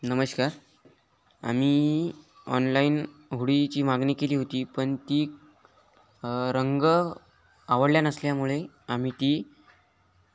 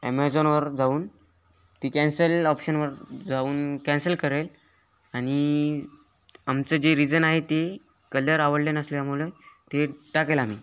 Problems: background sounds at intervals